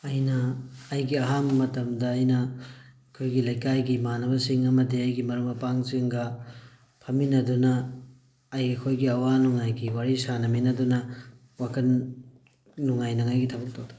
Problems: background sounds at intervals